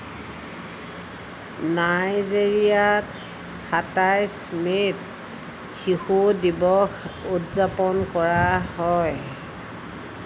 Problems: none marked